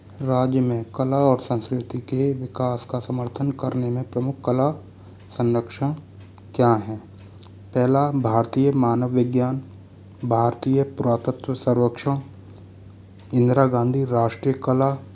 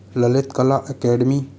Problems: constant background noise